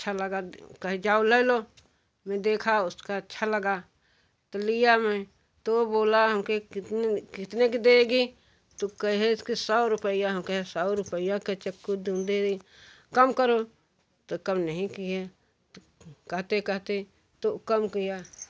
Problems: background sounds at intervals, background conversations at intervals